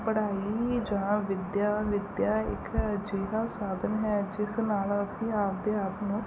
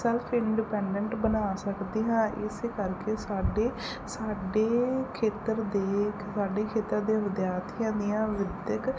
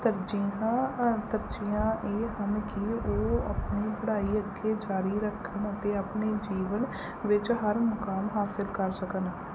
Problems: none marked